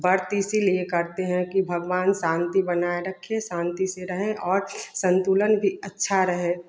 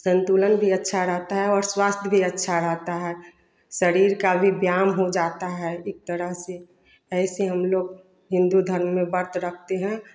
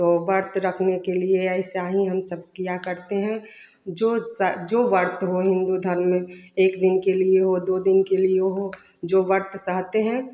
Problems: none marked